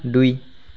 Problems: background sounds at intervals